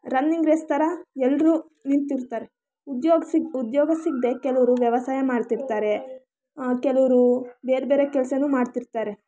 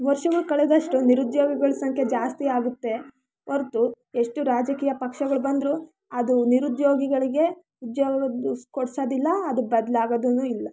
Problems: background sounds at intervals, background conversations at intervals